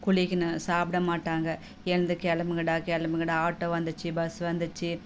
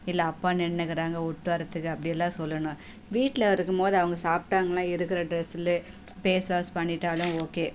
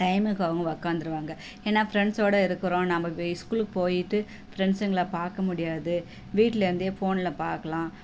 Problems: none marked